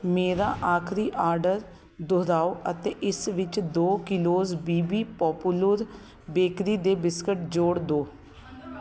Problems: constant background noise, background conversations at intervals